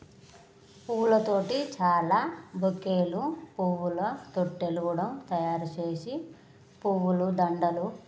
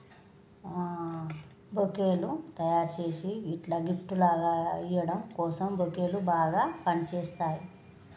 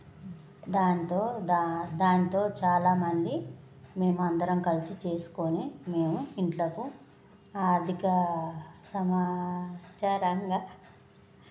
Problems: background conversations at intervals